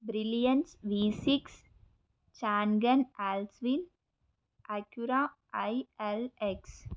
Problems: constant background noise